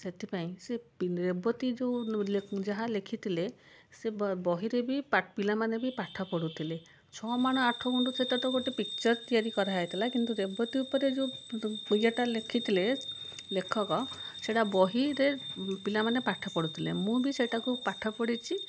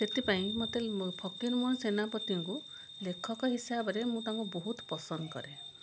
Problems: constant background noise